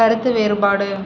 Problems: constant background noise